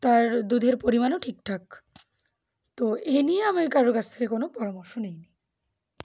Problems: background sounds at intervals